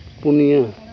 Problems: background conversations at intervals